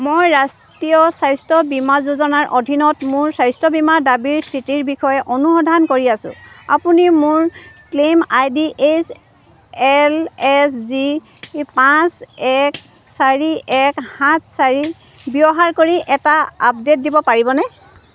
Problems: none marked